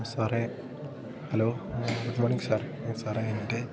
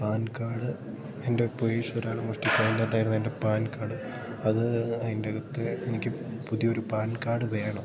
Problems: constant background noise